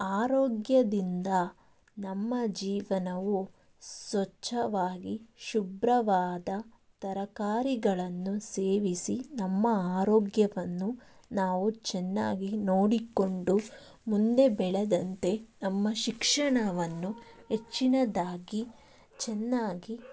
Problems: background sounds at intervals